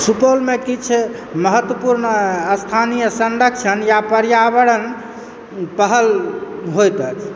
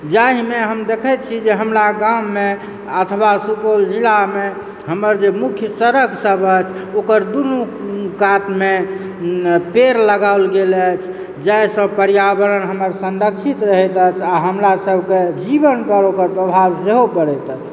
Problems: none marked